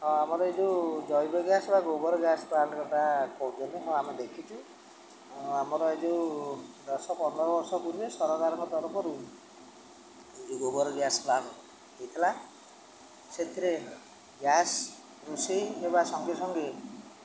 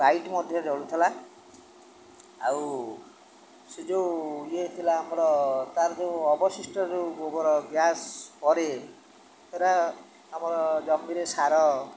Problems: none marked